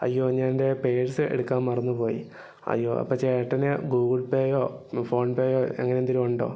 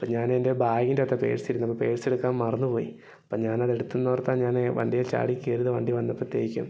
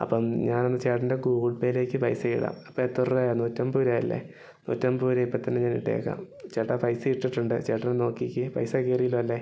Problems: low volume